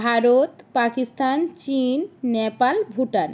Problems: constant background noise